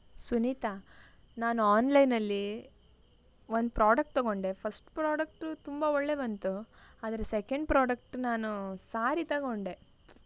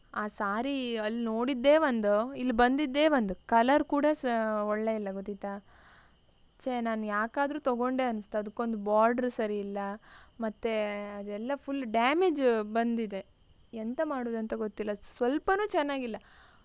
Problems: none marked